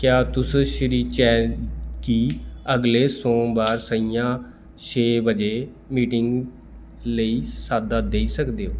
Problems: constant background noise